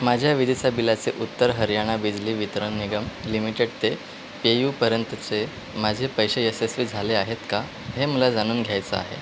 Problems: constant background noise